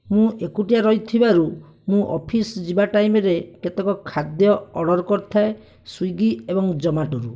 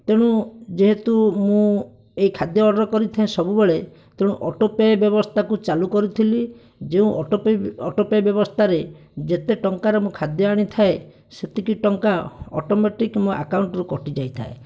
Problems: none marked